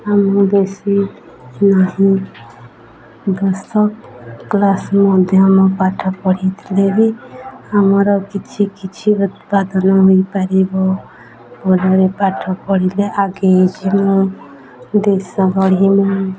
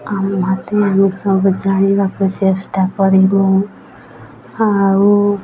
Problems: constant background noise, continuous background conversations